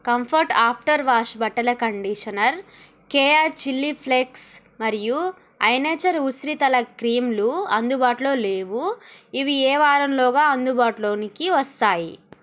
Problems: none marked